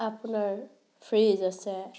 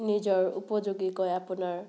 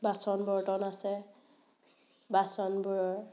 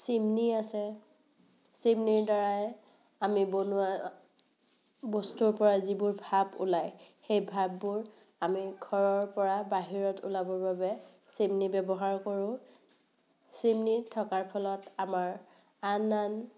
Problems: none marked